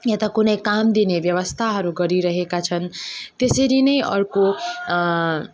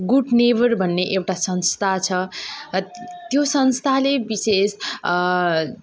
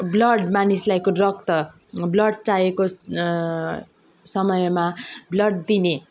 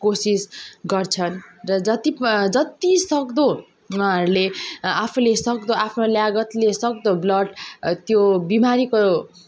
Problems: none marked